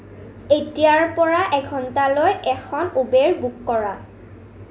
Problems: constant background noise